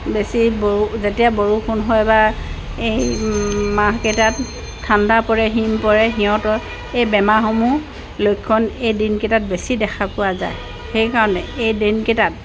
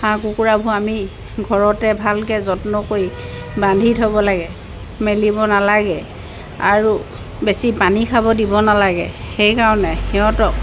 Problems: constant background noise